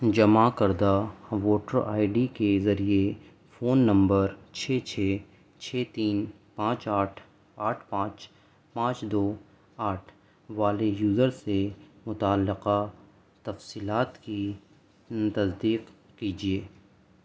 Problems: constant background noise, low volume